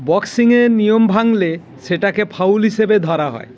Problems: none marked